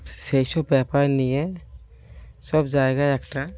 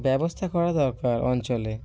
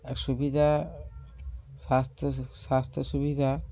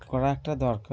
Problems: constant background noise